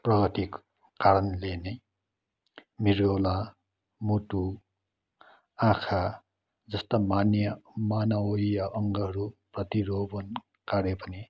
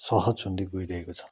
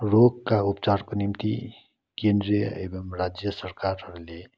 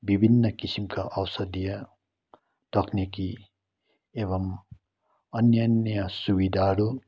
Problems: none marked